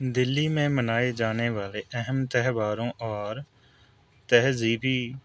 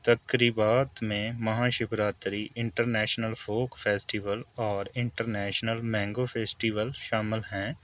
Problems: constant background noise